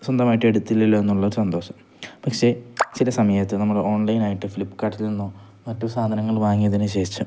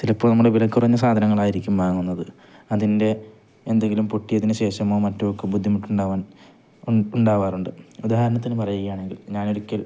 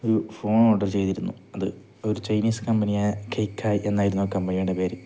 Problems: none marked